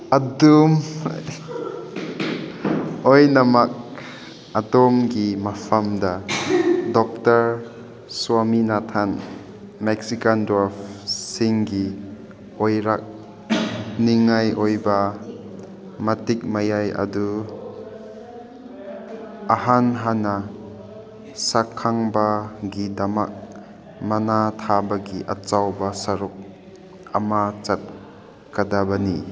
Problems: background sounds at intervals